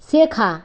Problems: constant background noise